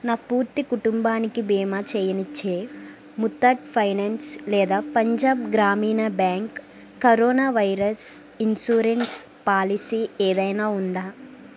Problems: constant background noise